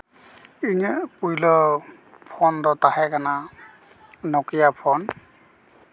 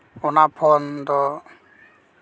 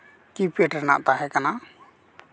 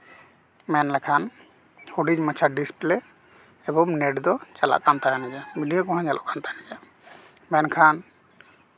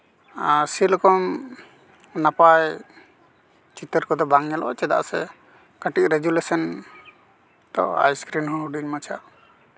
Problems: background sounds at intervals